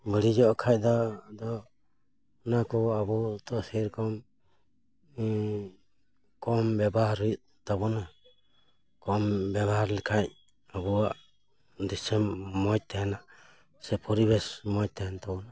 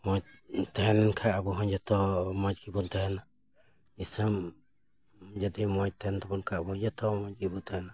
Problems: none marked